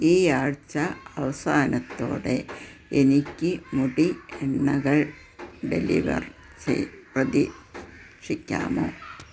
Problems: constant background noise